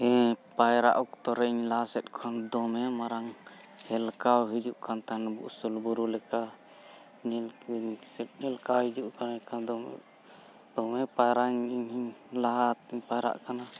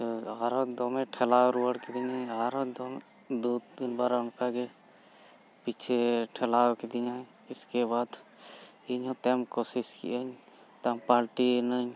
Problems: none marked